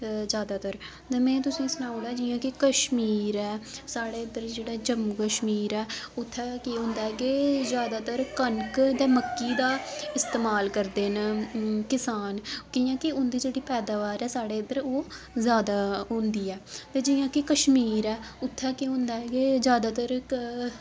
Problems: constant background noise